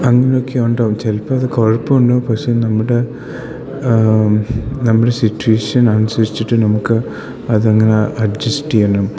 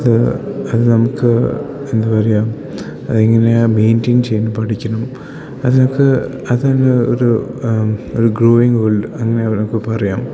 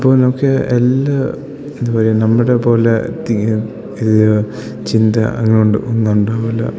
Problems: none marked